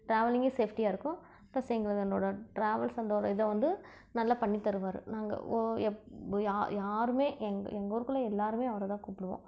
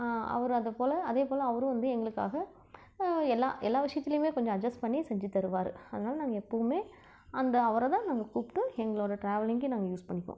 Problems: none marked